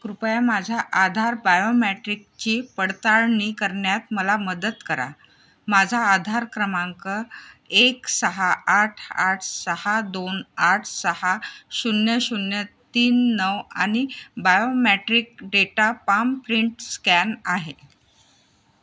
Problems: background sounds at intervals